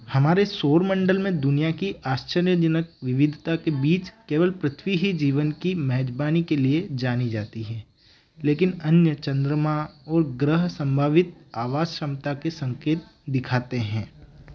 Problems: background sounds at intervals